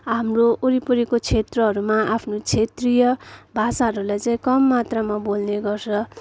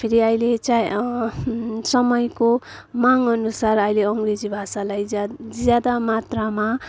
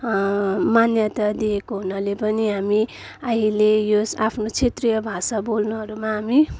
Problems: none marked